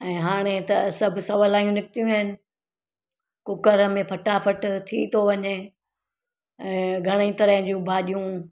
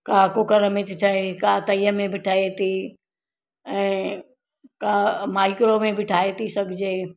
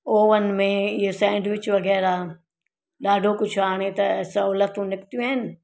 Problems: none marked